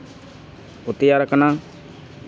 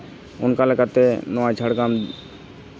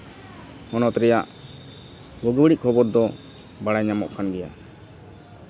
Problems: constant background noise